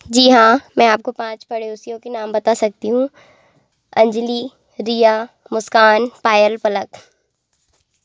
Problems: constant background noise